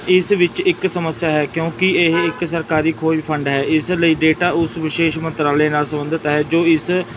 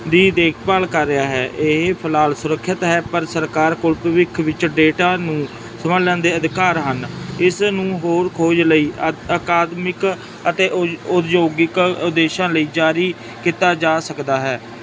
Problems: constant background noise